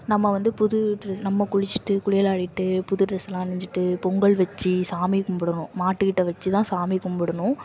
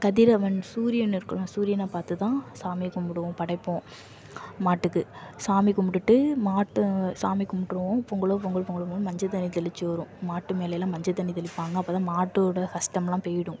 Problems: constant background noise